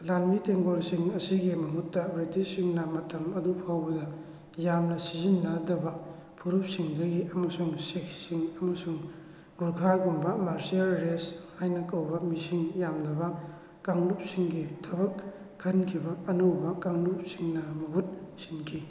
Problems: constant background noise